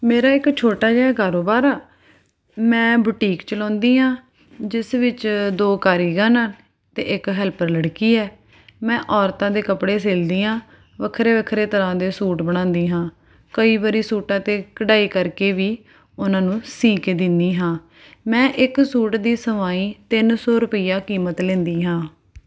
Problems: background sounds at intervals